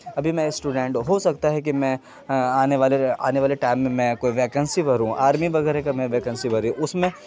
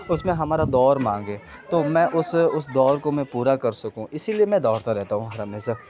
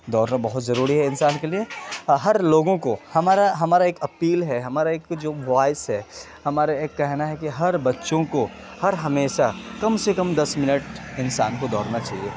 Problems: constant background noise